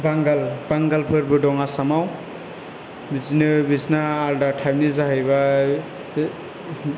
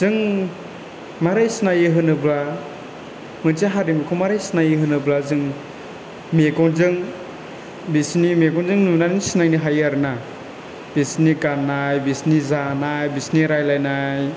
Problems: constant background noise